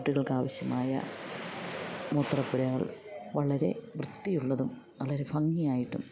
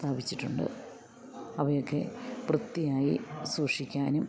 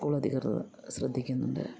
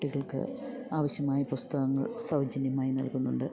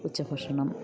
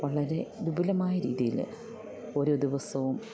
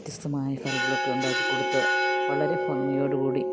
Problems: background sounds at intervals